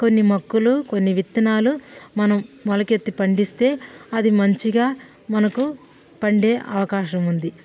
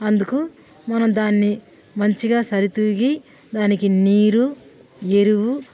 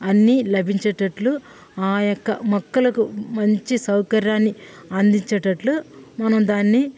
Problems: background sounds at intervals